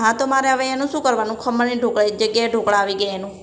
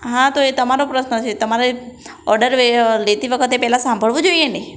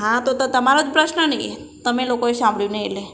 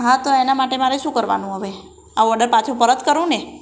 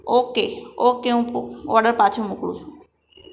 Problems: none marked